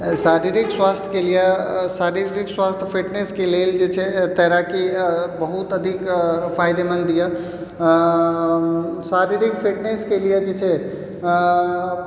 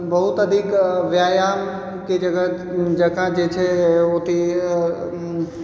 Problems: background sounds at intervals